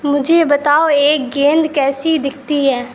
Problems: constant background noise